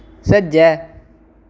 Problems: constant background noise